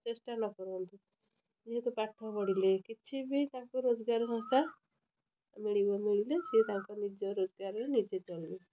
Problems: constant background noise